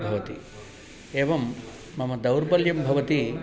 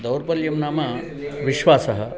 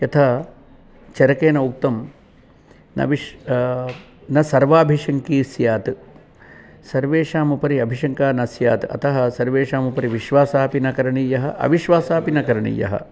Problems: continuous background conversations